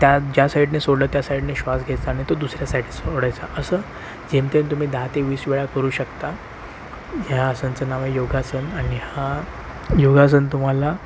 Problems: constant background noise